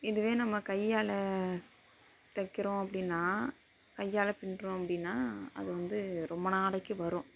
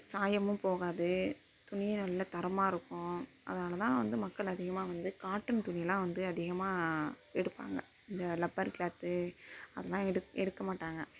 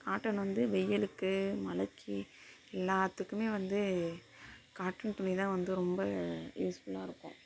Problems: constant background noise, low volume